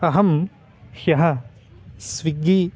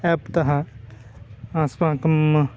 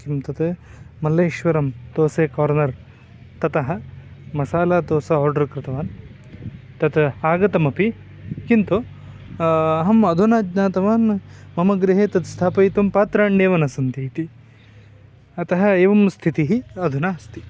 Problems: constant background noise, continuous background conversations